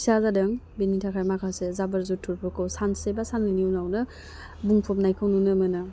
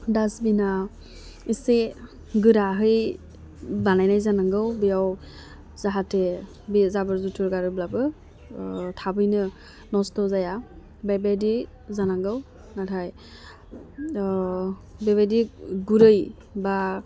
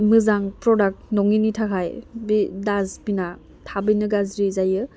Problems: none marked